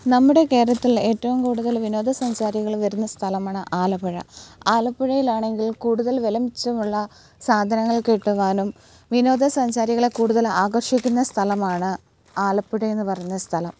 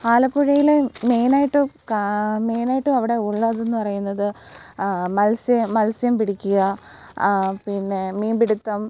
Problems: background sounds at intervals